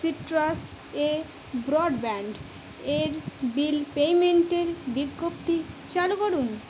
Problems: constant background noise